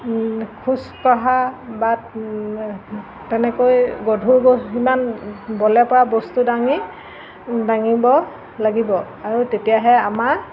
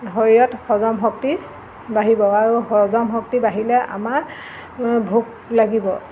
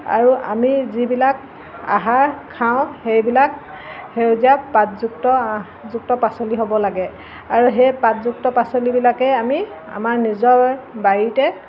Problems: constant background noise